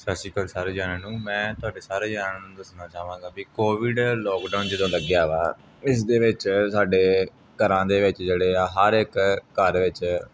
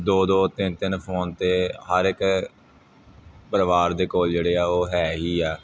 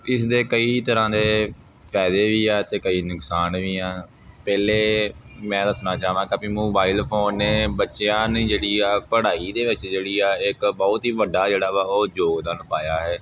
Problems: none marked